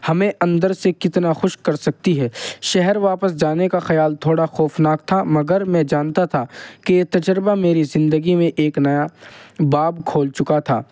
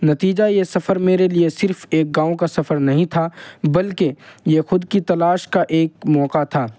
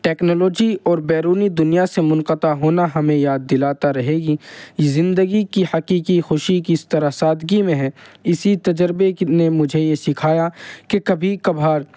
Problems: none marked